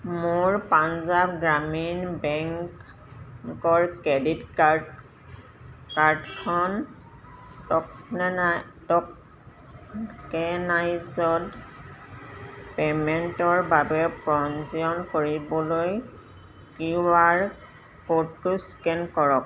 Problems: none marked